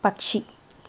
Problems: constant background noise